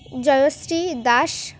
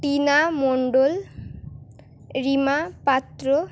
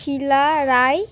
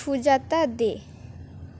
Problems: none marked